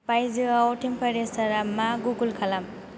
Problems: constant background noise